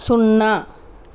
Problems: none marked